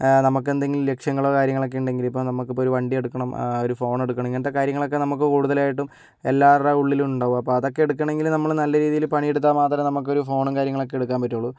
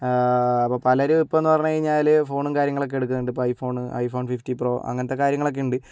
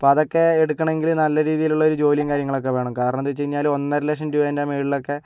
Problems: background sounds at intervals